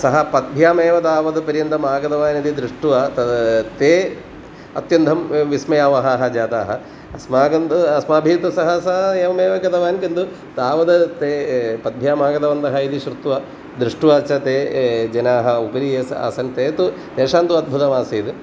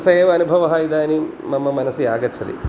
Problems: constant background noise